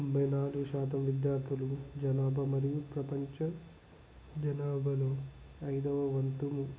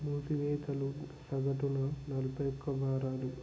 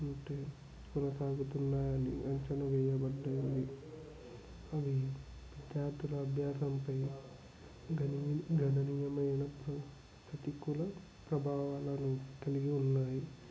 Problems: constant background noise, background conversations at intervals, low volume